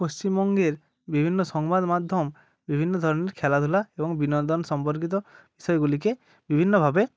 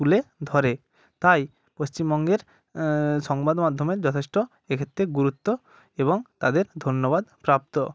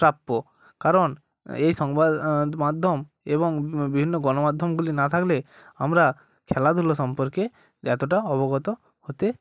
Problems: none marked